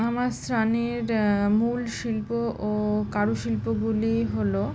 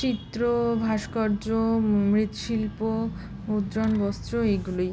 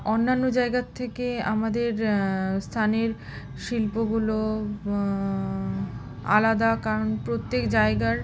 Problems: constant background noise